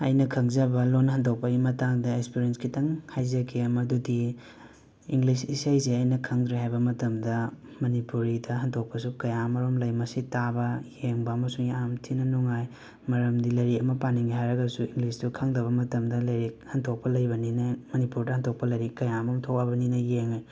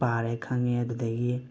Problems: constant background noise